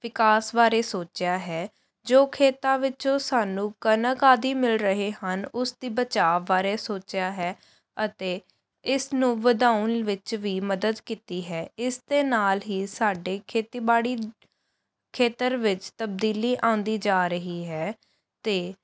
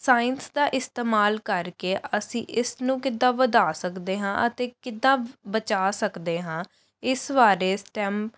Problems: none marked